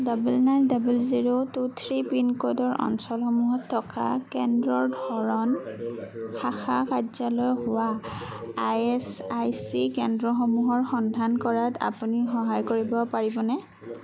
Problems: background conversations at intervals